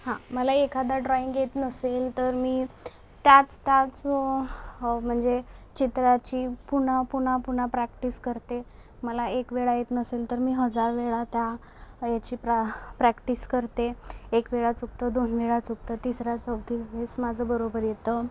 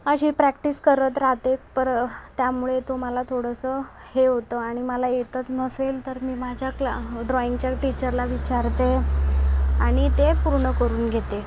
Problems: constant background noise